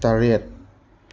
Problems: none marked